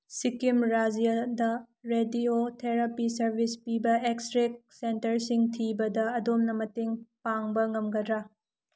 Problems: none marked